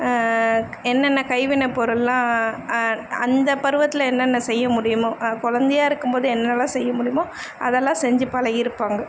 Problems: constant background noise